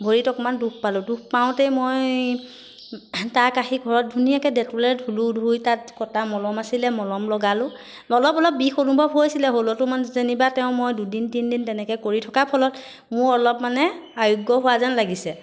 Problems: constant background noise